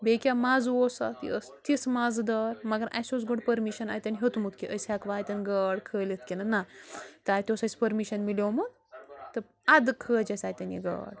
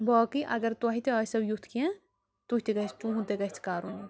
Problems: constant background noise